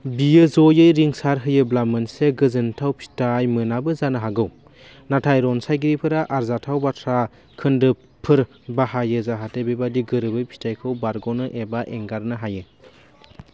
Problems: constant background noise